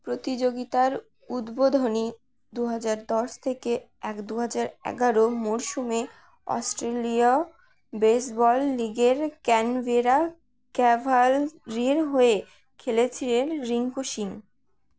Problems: none marked